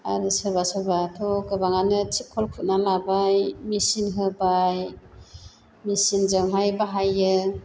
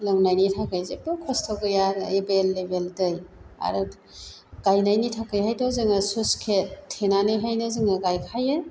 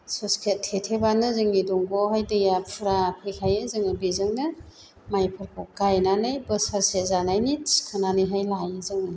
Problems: constant background noise